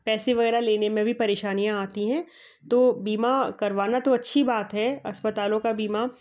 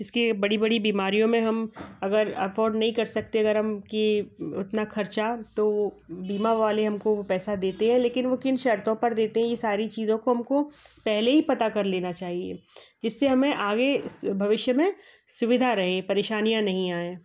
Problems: background sounds at intervals, background conversations at intervals